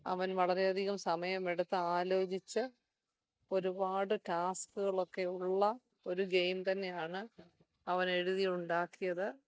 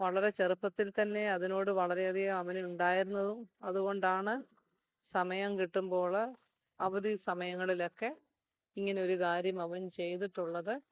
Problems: none marked